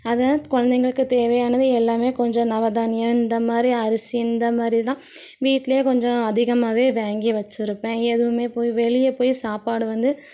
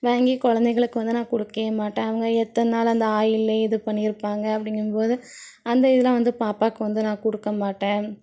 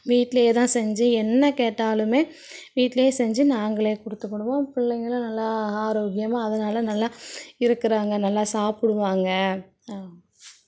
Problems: none marked